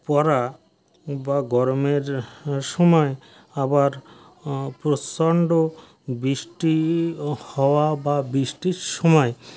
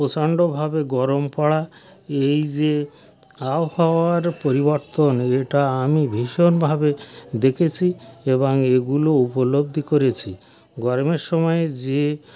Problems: background sounds at intervals, background conversations at intervals